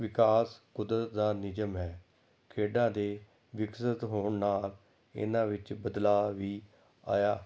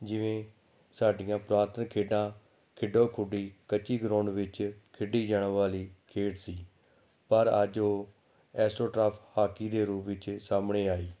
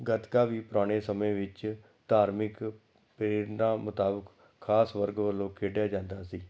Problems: none marked